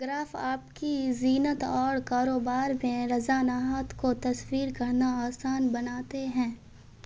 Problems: constant background noise